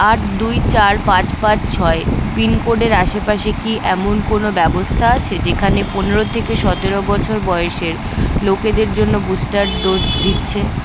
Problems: none marked